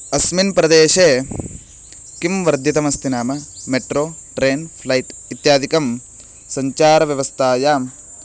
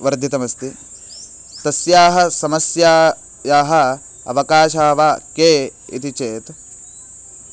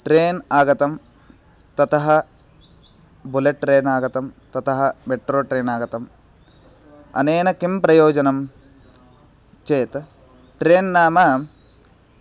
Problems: constant background noise